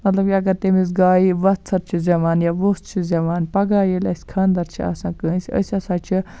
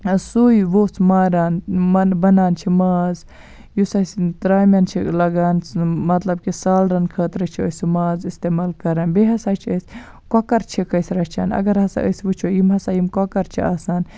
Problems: none marked